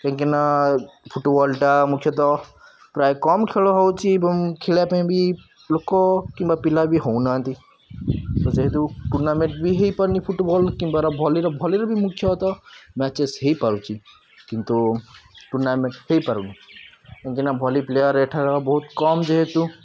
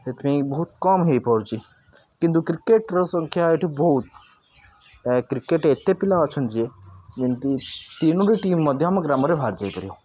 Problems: none marked